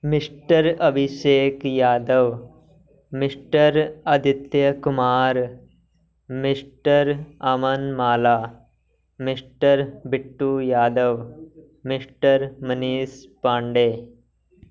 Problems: background conversations at intervals